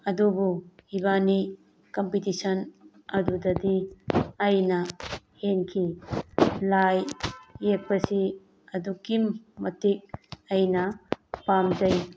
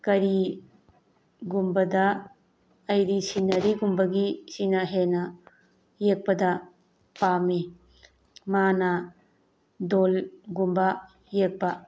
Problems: background sounds at intervals